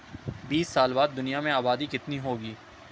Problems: none marked